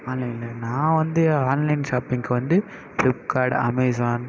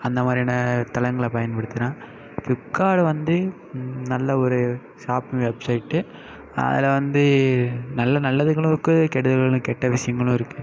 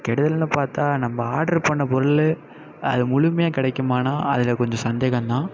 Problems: constant background noise, continuous background conversations